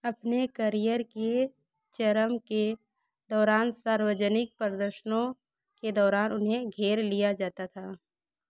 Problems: background sounds at intervals